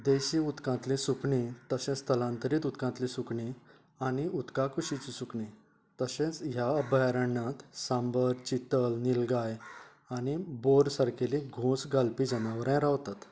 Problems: low volume